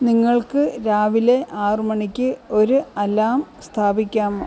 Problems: background sounds at intervals